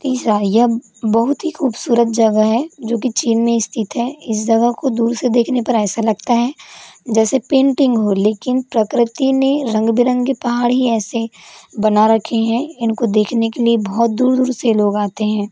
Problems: constant background noise